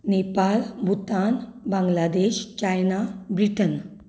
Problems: none marked